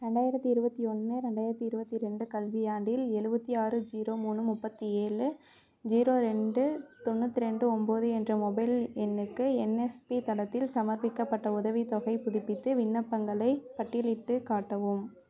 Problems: continuous background conversations